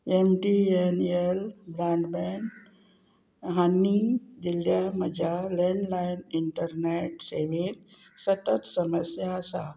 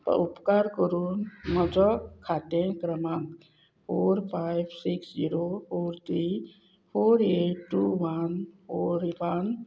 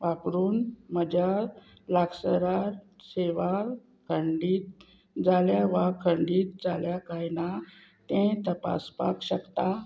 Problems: none marked